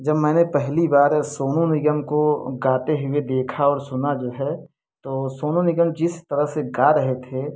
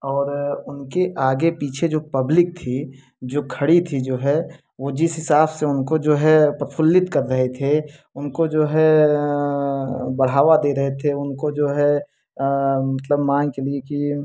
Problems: none marked